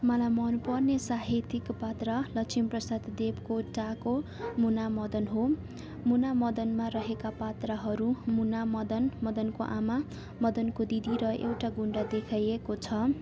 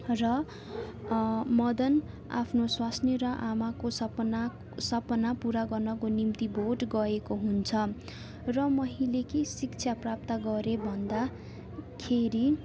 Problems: constant background noise, background conversations at intervals